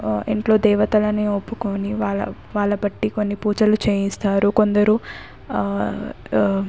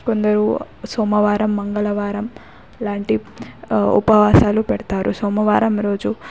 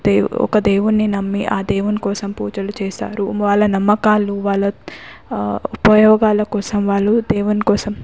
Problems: background sounds at intervals